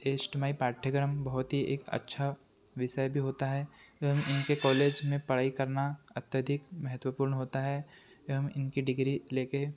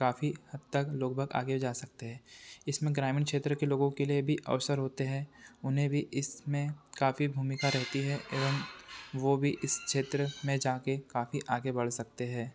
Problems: constant background noise